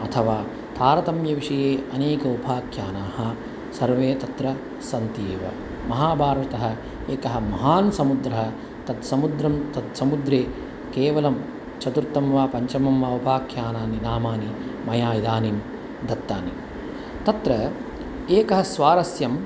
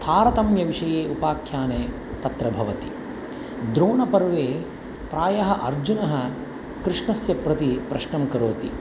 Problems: constant background noise